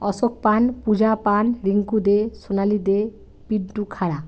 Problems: none marked